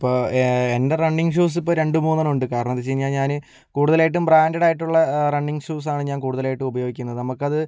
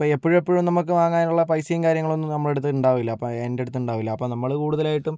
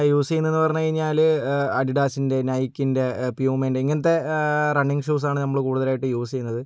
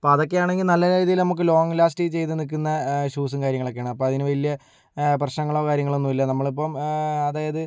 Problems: low volume